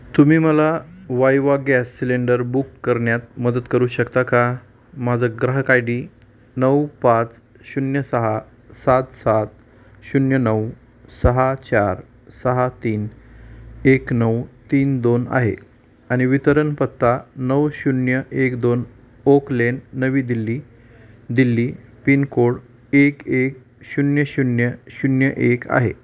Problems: constant background noise